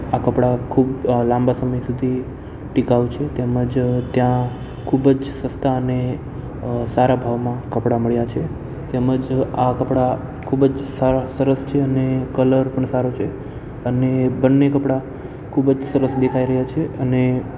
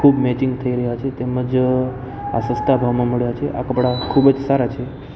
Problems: constant background noise